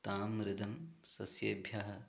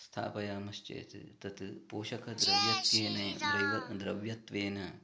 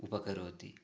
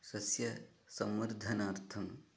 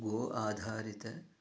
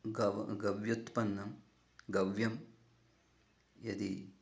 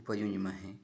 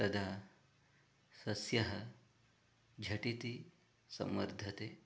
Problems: background conversations at intervals, low volume